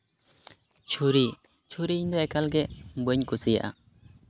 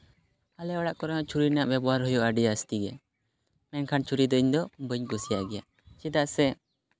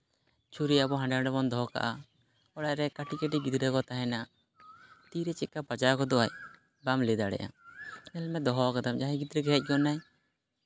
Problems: background sounds at intervals